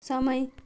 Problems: none marked